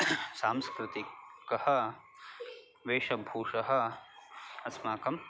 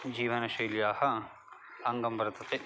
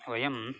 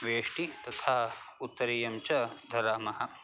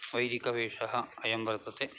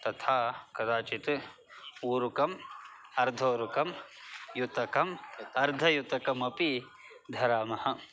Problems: constant background noise, continuous background conversations